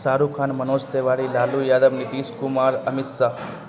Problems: constant background noise